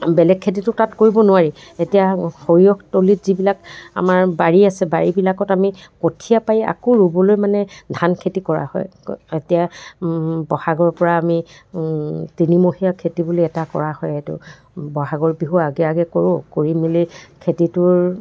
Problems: background sounds at intervals